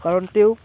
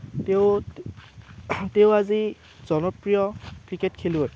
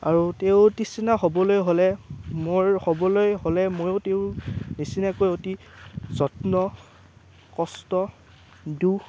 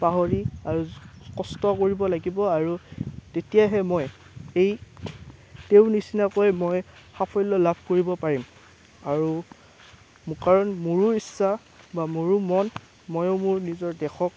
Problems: constant background noise